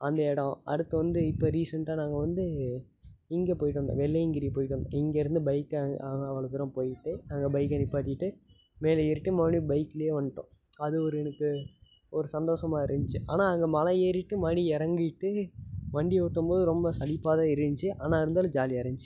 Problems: constant background noise